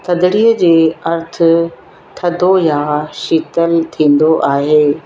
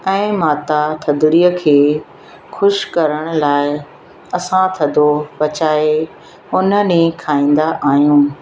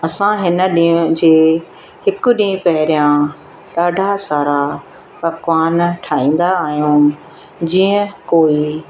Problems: constant background noise, echo